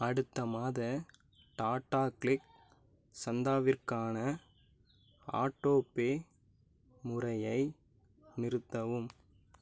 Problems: low volume